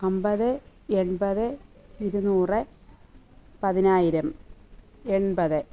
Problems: background sounds at intervals